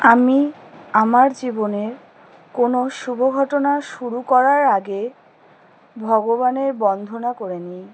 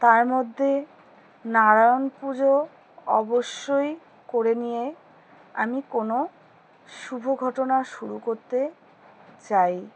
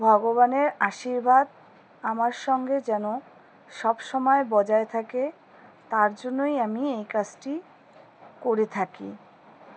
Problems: background sounds at intervals